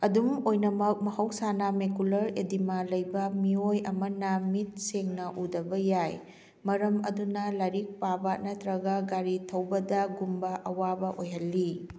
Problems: none marked